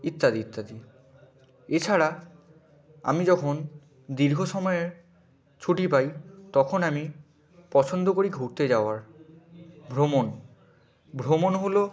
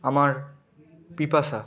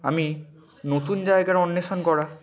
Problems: none marked